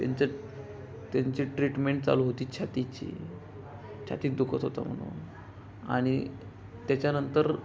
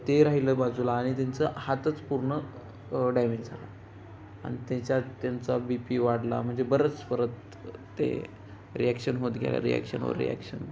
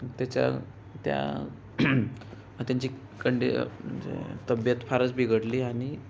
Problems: background conversations at intervals